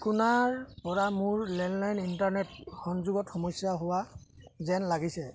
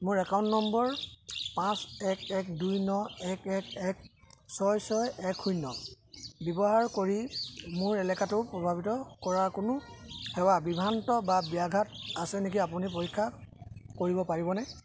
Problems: none marked